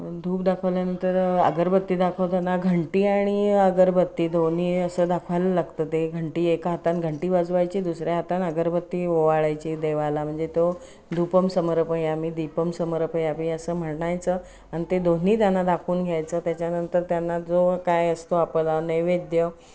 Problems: none marked